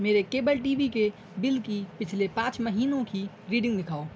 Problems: none marked